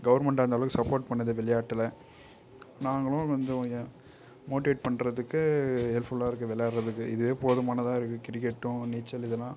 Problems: none marked